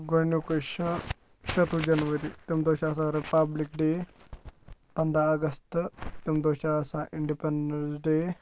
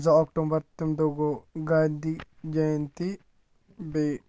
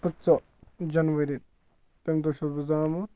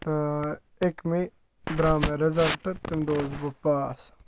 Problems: low volume